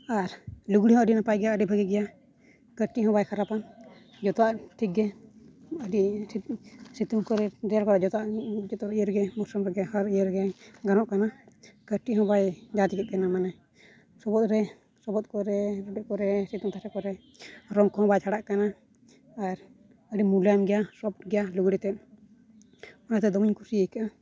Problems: low volume